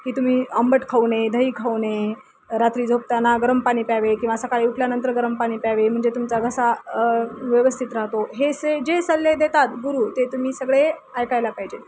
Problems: none marked